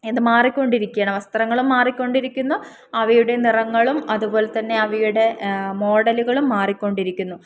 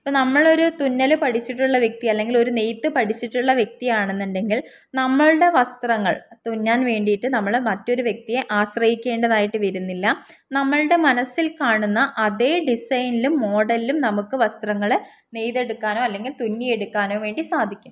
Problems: none marked